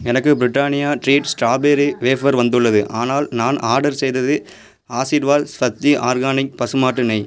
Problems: background sounds at intervals